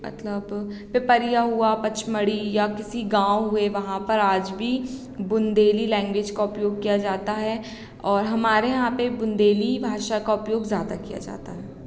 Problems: none marked